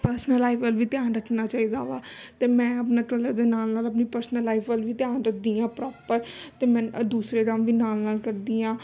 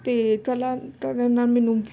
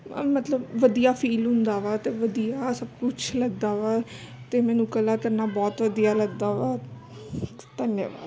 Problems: constant background noise, background conversations at intervals